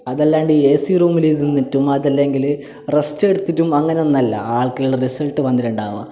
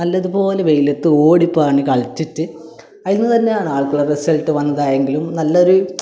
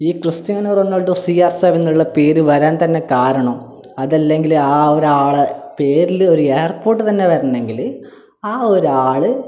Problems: none marked